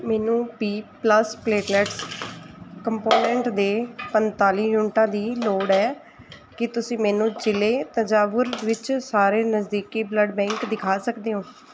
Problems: constant background noise